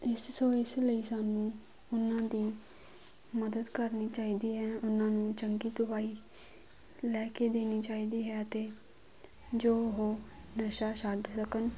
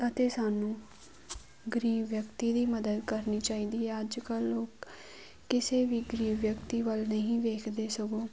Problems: none marked